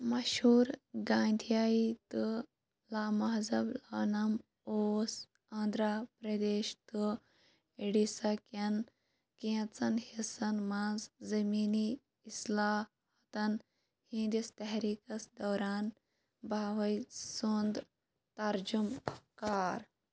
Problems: background sounds at intervals, low volume